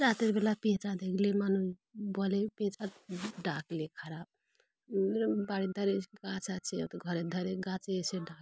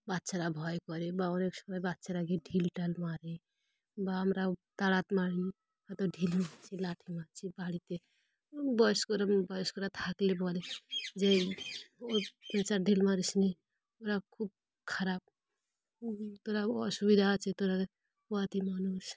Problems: none marked